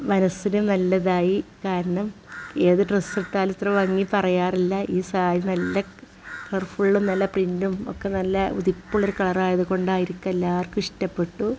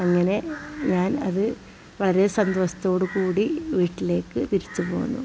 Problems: background sounds at intervals